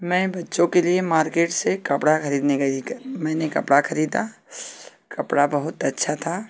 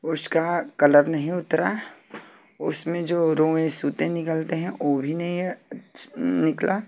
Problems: constant background noise